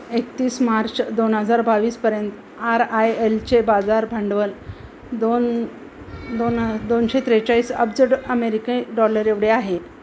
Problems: constant background noise, continuous background conversations